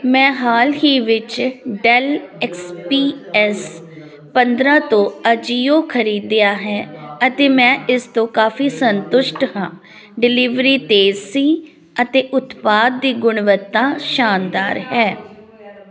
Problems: constant background noise